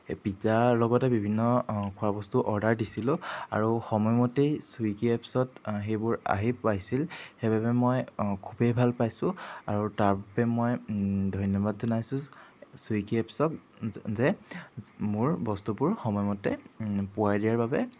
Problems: background sounds at intervals